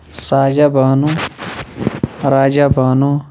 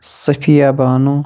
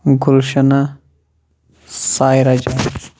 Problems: none marked